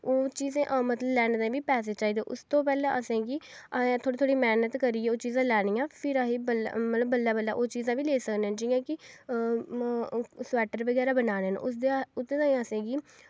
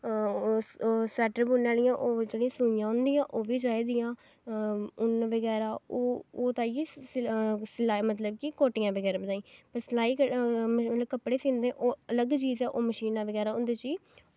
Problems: none marked